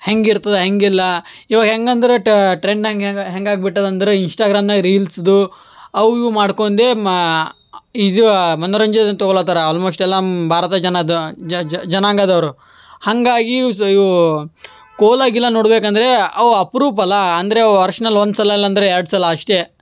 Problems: none marked